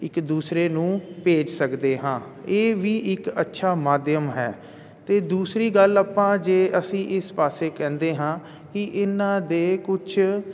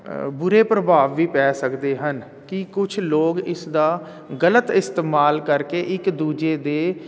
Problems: none marked